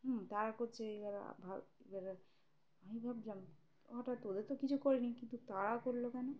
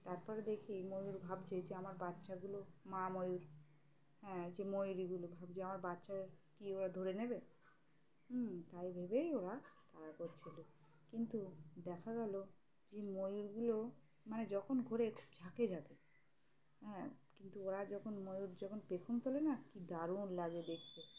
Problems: none marked